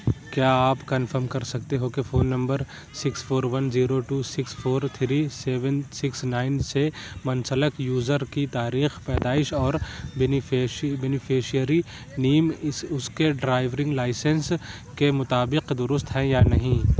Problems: none marked